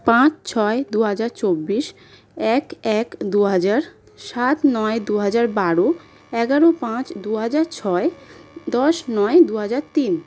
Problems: constant background noise